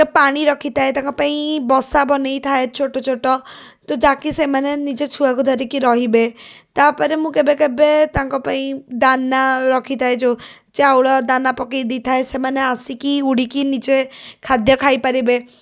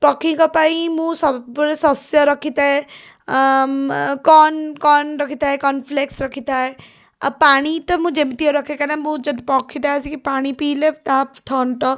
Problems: none marked